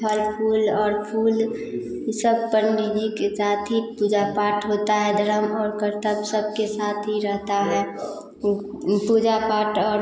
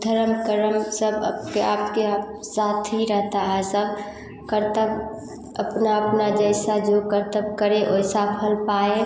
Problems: constant background noise